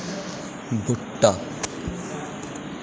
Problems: constant background noise